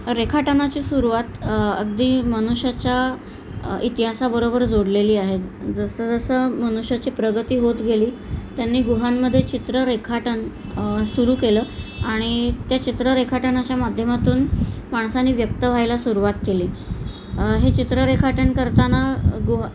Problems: constant background noise